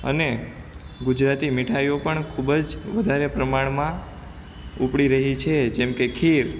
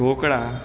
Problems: constant background noise